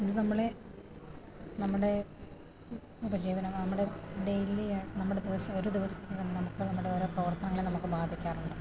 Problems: low volume